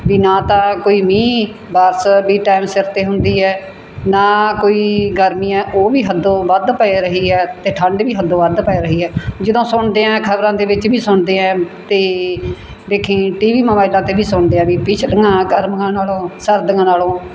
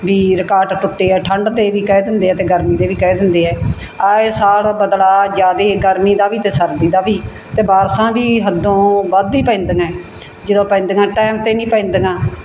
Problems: none marked